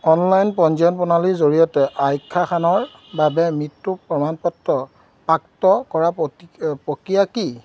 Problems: constant background noise